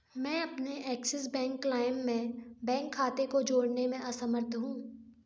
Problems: none marked